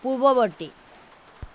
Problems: constant background noise